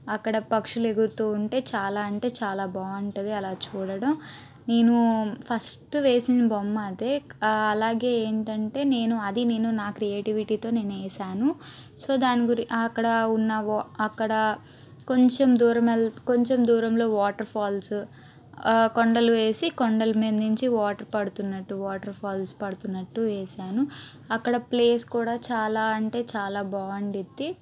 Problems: constant background noise